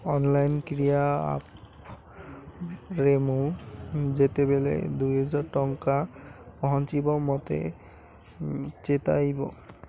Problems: none marked